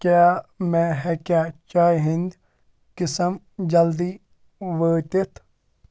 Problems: constant background noise